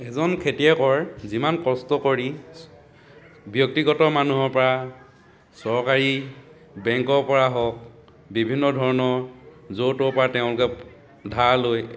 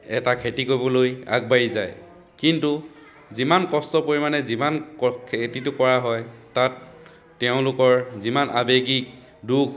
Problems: background conversations at intervals